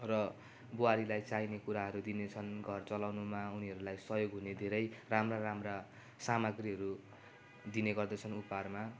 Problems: none marked